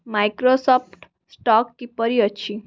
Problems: background sounds at intervals